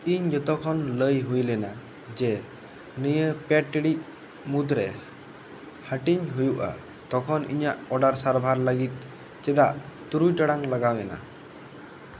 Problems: constant background noise